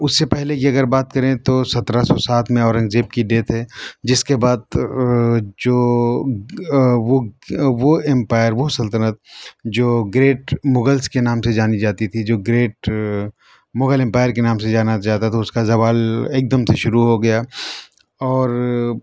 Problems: constant background noise